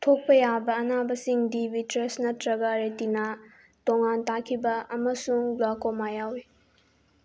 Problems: background sounds at intervals